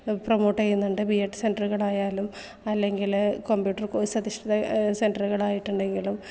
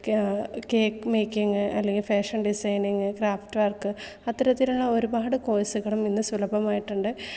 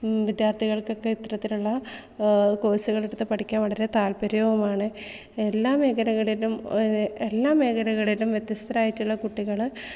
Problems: none marked